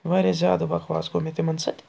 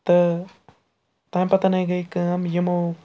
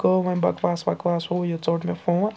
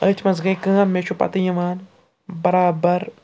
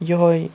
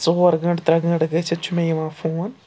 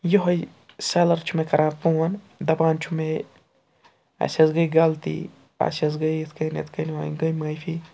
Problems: background sounds at intervals, background conversations at intervals